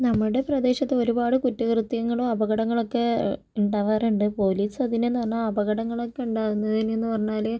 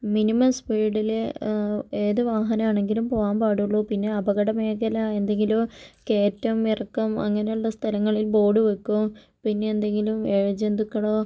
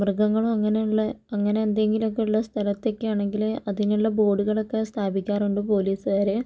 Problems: none marked